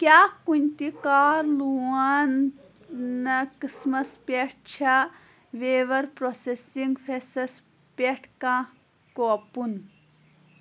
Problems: background sounds at intervals, background conversations at intervals